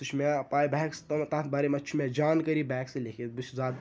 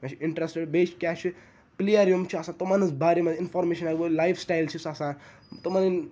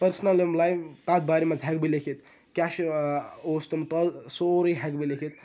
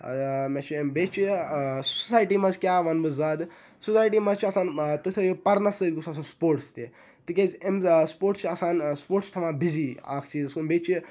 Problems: none marked